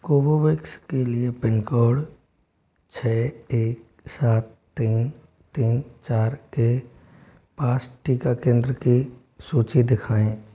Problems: constant background noise